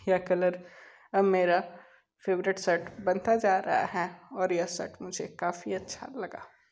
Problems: constant background noise